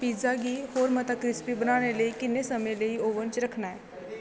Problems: constant background noise